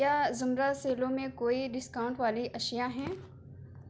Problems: low volume